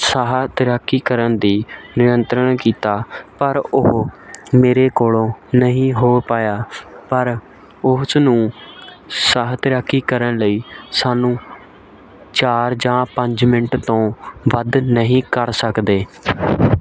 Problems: continuous background conversations